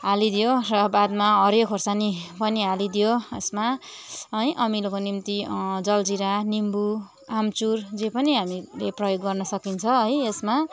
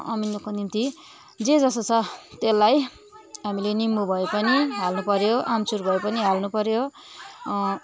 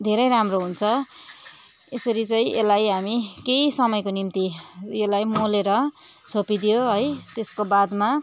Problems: constant background noise